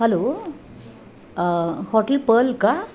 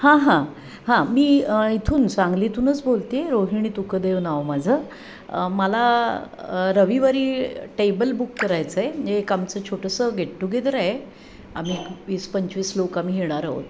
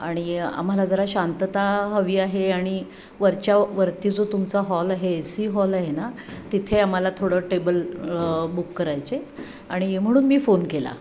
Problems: constant background noise